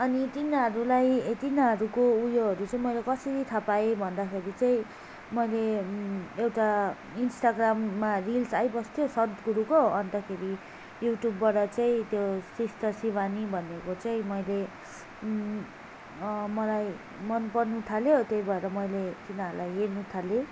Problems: none marked